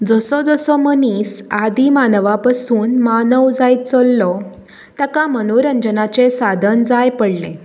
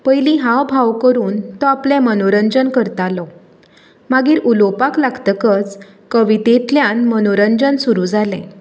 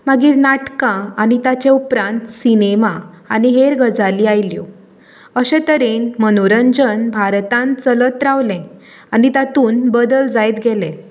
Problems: none marked